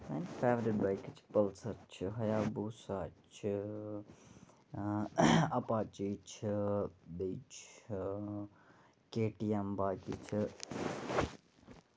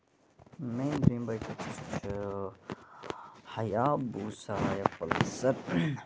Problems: background sounds at intervals, low volume